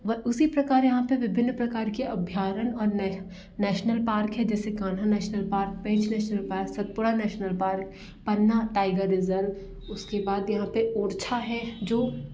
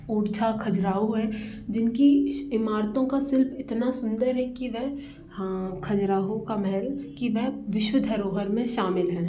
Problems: none marked